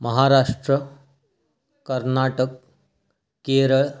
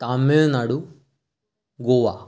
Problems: background sounds at intervals, echo